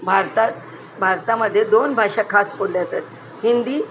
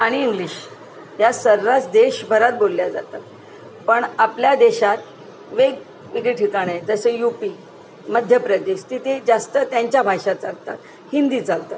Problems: none marked